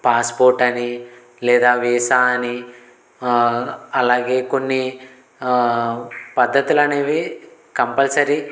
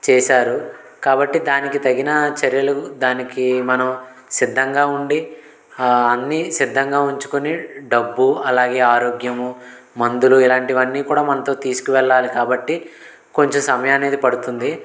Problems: constant background noise